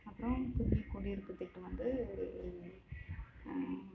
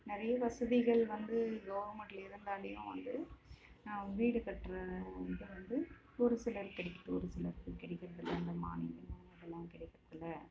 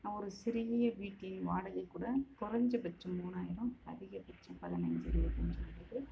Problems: constant background noise, continuous background conversations, low volume